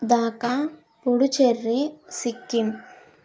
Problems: none marked